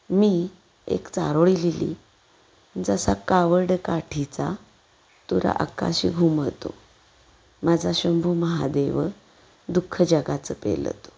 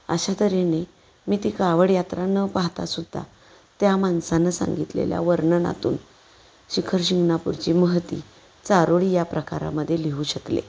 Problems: background sounds at intervals